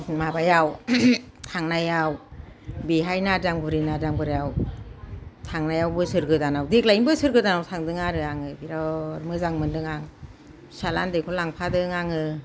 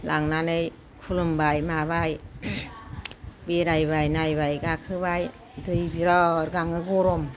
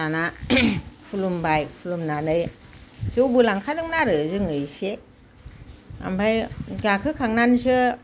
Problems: none marked